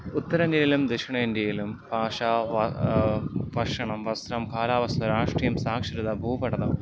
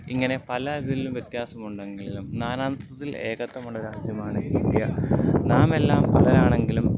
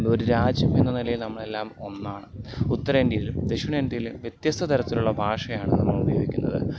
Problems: constant background noise